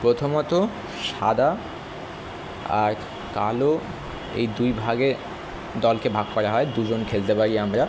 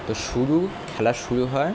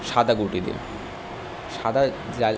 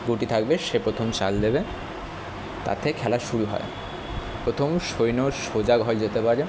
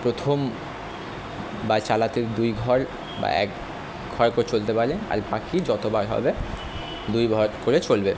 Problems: constant background noise